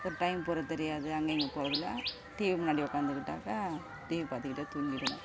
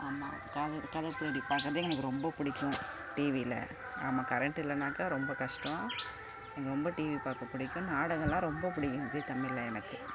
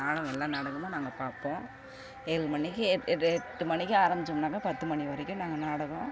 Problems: constant background noise